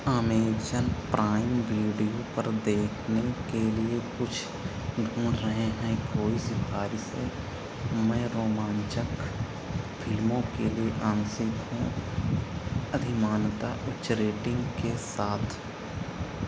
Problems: constant background noise